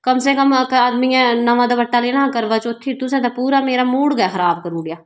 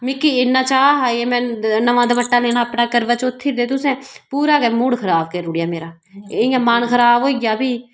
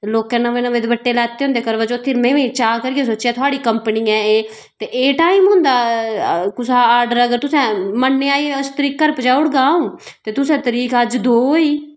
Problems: background sounds at intervals